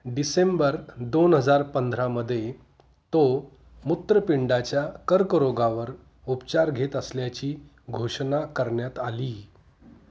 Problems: none marked